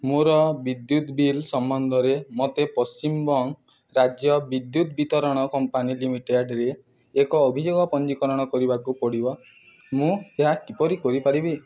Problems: background sounds at intervals